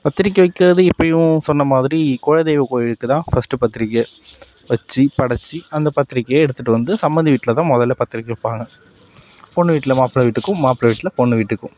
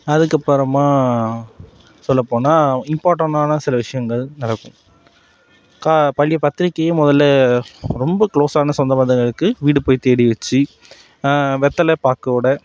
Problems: none marked